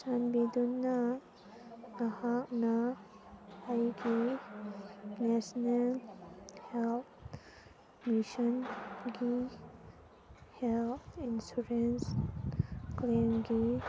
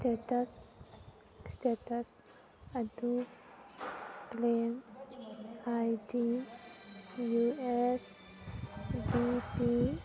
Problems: constant background noise, background conversations at intervals